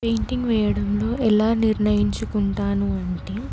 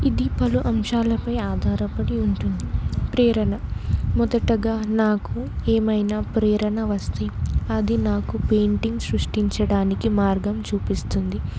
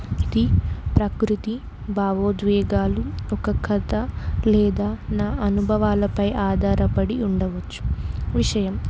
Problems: constant background noise